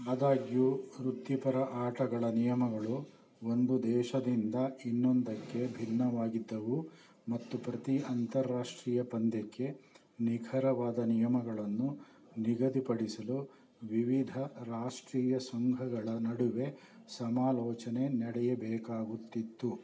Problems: none marked